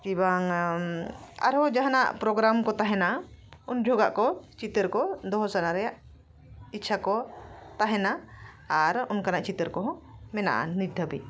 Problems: background sounds at intervals